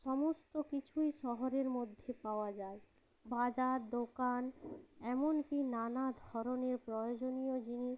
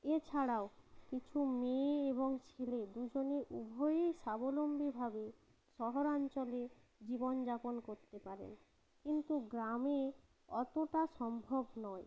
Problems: none marked